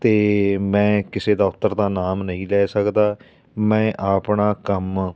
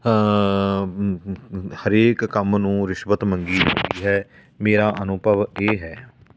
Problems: background sounds at intervals